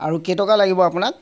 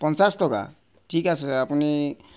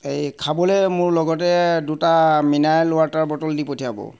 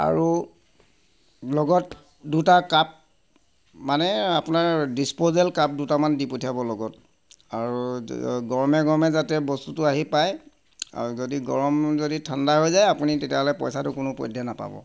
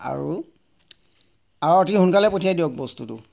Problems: constant background noise